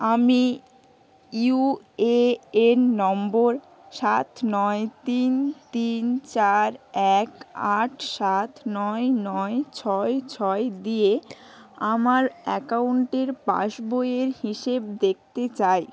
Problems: none marked